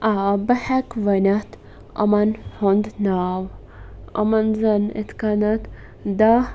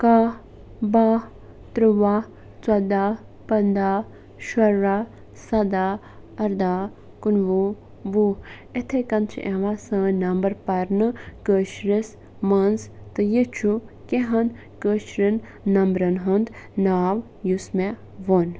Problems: constant background noise